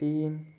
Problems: background sounds at intervals